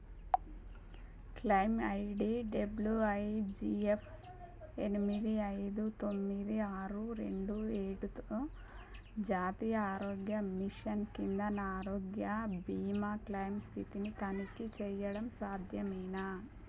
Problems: low volume